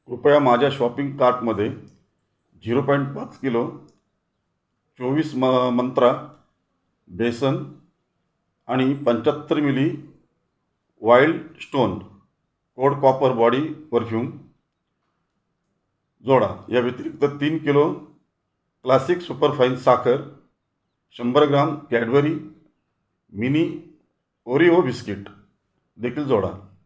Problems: none marked